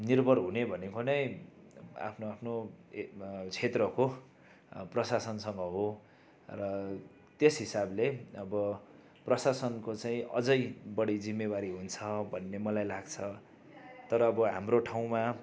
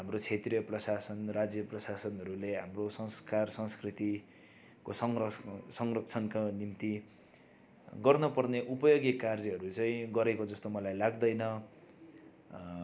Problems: none marked